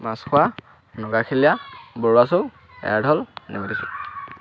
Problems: constant background noise, background conversations at intervals